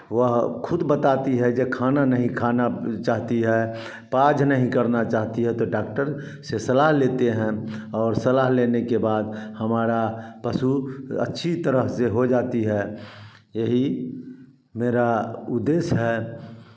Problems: background sounds at intervals, background conversations at intervals, echo